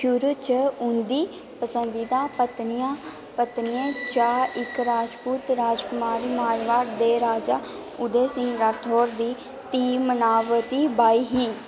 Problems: constant background noise